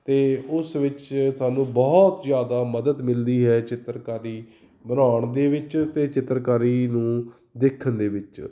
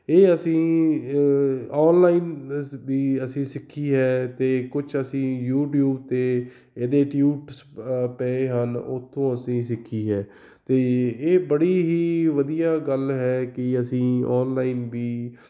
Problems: background sounds at intervals